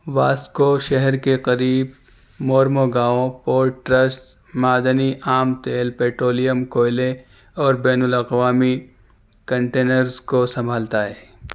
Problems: none marked